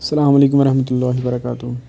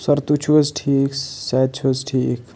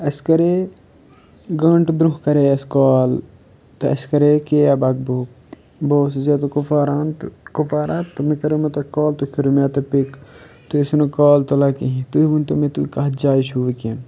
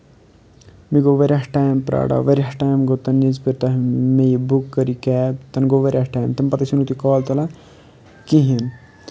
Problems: none marked